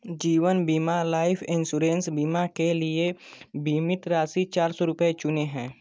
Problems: none marked